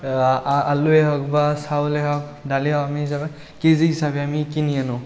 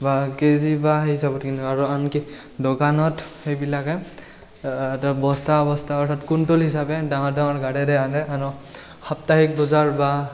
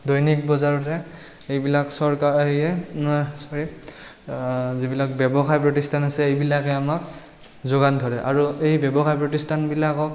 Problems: background sounds at intervals